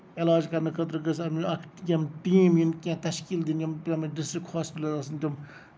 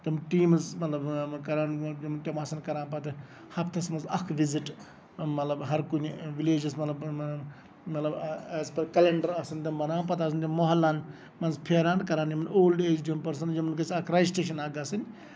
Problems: background sounds at intervals, background conversations at intervals